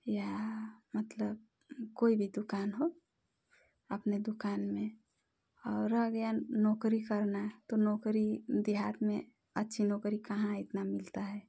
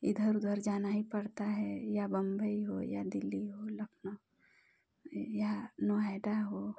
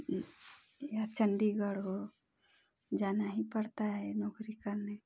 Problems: none marked